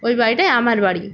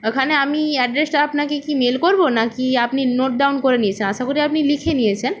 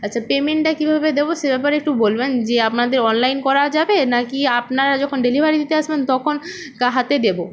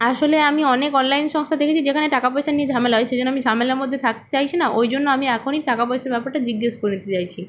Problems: none marked